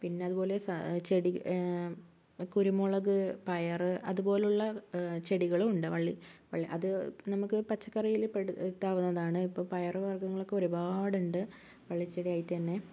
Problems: none marked